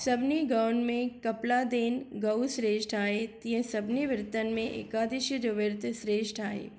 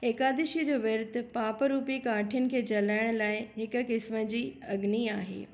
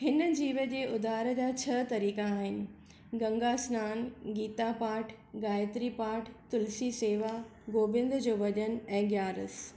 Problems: none marked